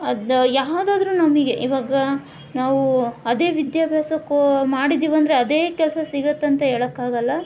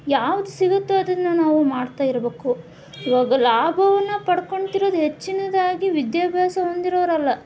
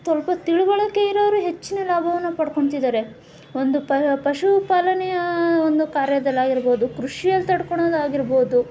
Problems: none marked